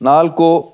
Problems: none marked